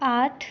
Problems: none marked